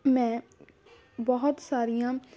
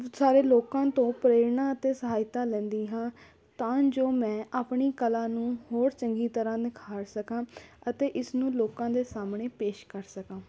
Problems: constant background noise, background conversations at intervals